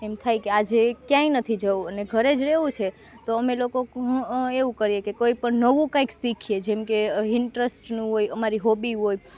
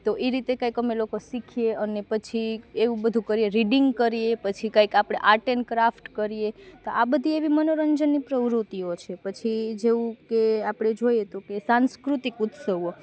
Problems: none marked